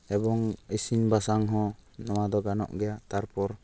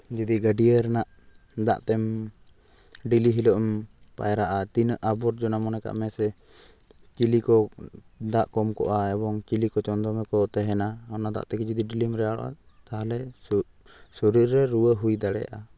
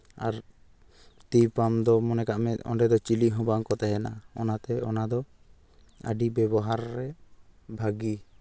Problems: background sounds at intervals